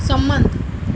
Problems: constant background noise